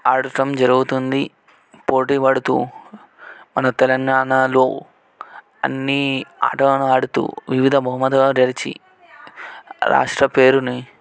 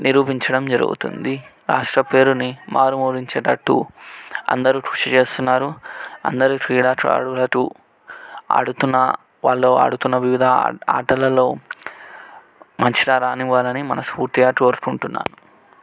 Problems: background conversations at intervals